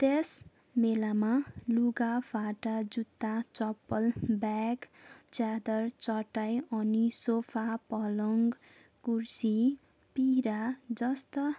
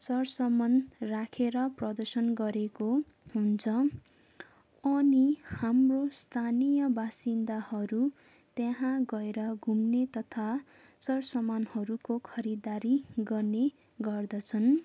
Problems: background sounds at intervals